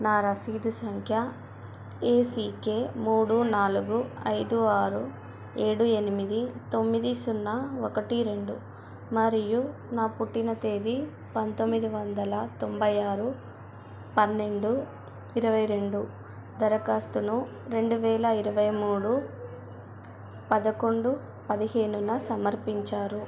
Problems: constant background noise, continuous background conversations